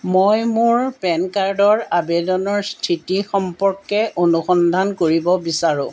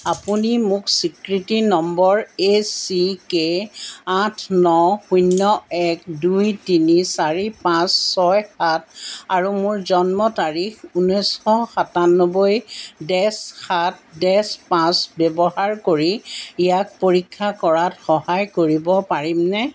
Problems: background sounds at intervals